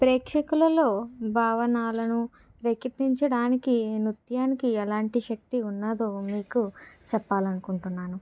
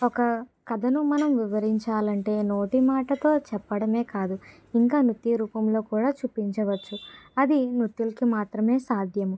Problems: background sounds at intervals